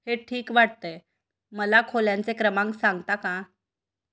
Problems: none marked